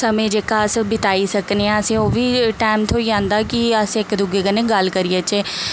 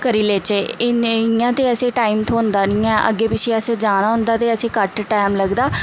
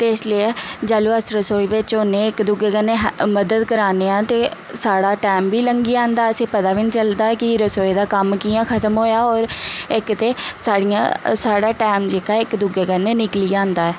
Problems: none marked